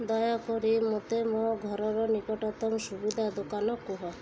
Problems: none marked